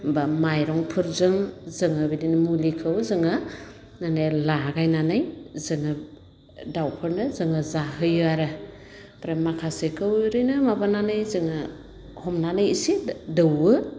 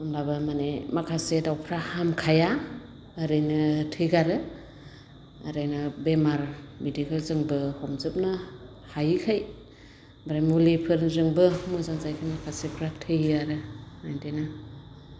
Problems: constant background noise